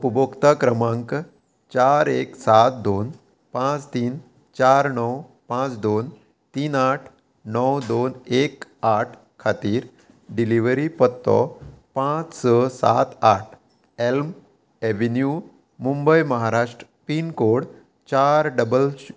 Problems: constant background noise